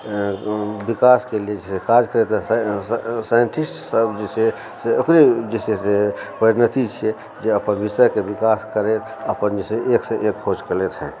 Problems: background sounds at intervals, background conversations at intervals